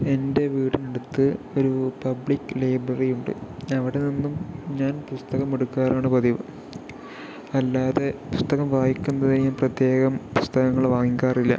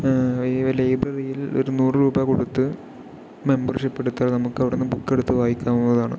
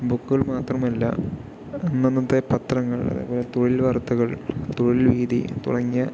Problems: none marked